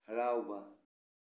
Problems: low volume